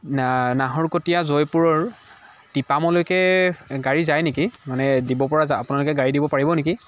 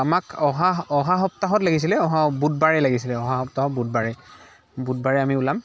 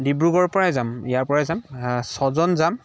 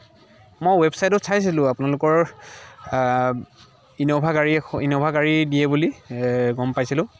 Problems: continuous background conversations